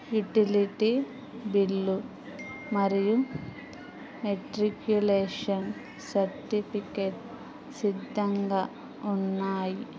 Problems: background sounds at intervals, background conversations at intervals